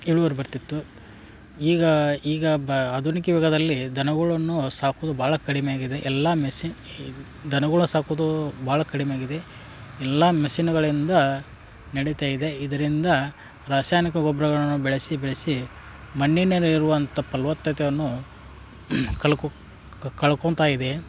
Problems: background sounds at intervals